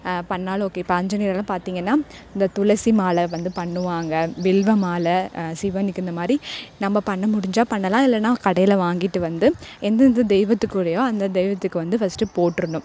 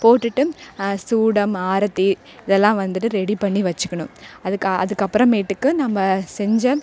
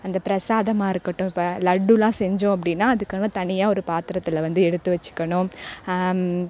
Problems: none marked